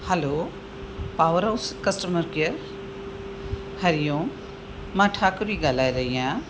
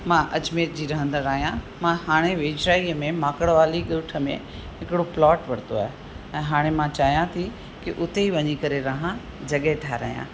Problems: constant background noise